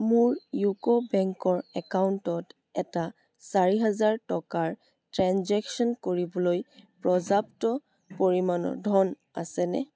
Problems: constant background noise